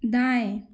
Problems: none marked